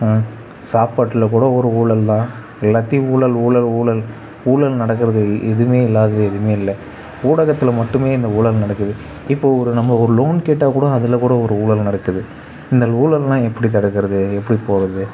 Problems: none marked